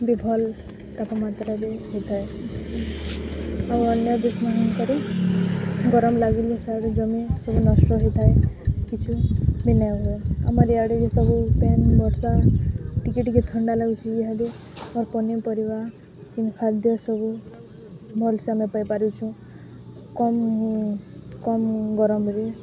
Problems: constant background noise, continuous background conversations